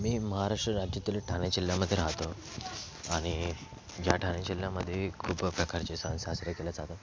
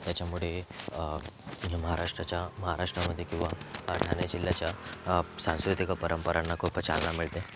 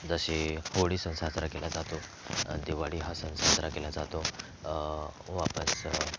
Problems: constant background noise, continuous background conversations